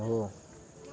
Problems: none marked